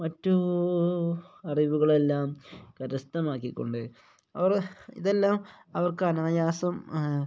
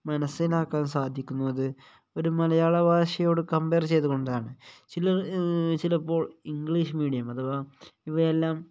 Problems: none marked